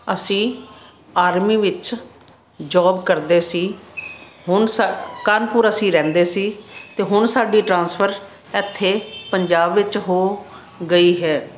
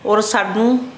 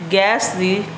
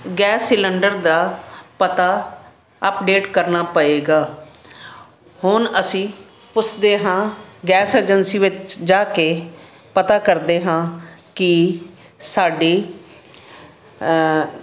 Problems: constant background noise